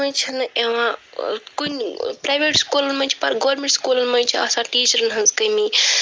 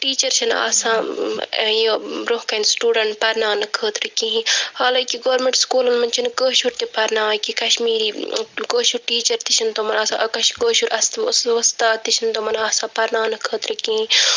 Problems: none marked